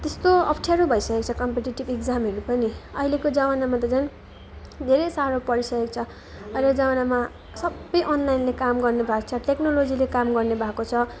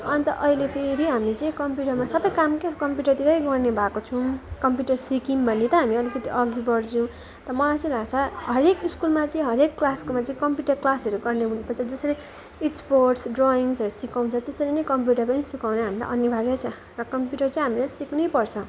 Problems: none marked